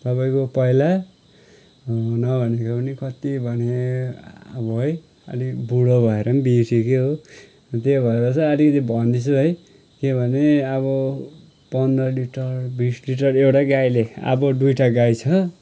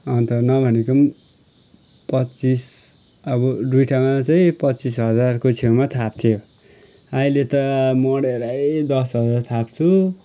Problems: none marked